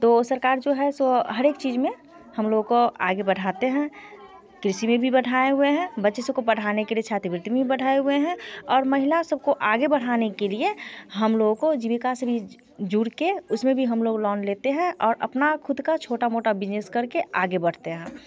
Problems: none marked